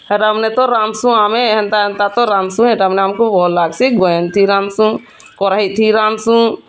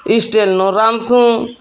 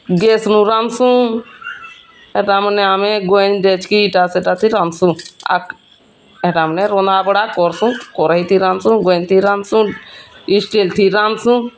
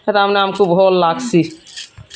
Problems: constant background noise, continuous background conversations